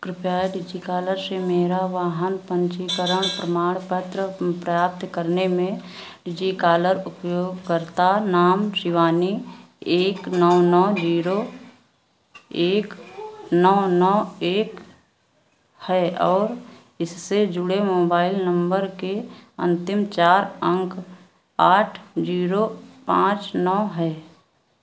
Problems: background sounds at intervals